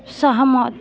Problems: constant background noise